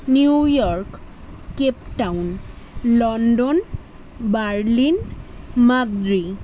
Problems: constant background noise